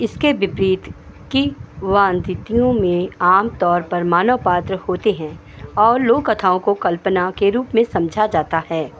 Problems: none marked